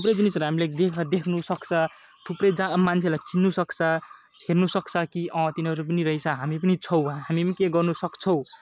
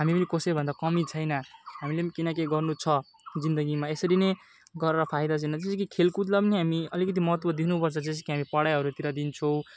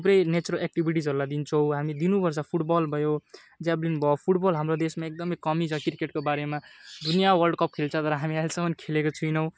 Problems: none marked